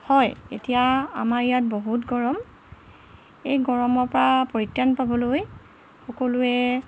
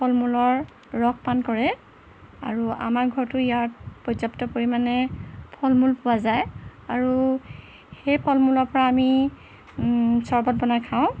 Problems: constant background noise